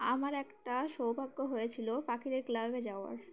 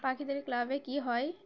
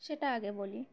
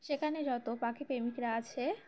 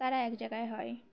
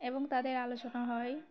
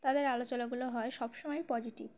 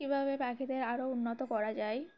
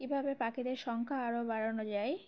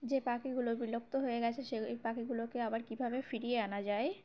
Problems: constant background noise